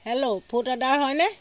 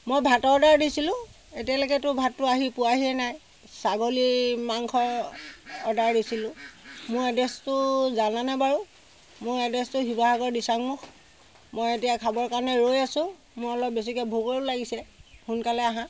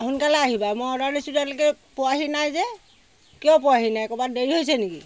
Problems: none marked